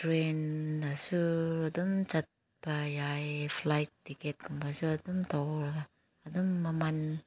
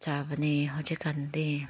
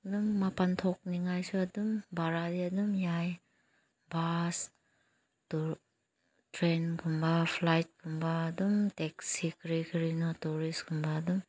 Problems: none marked